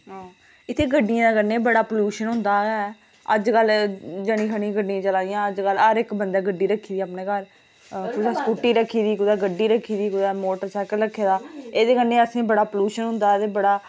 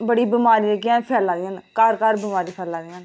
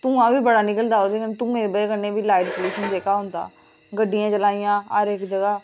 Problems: background sounds at intervals